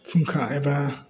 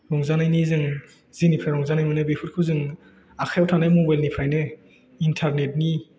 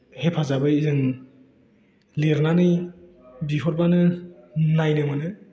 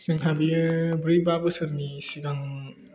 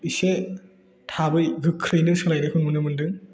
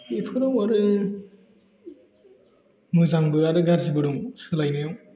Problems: none marked